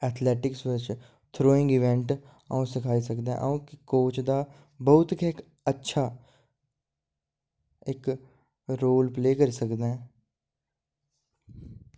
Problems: none marked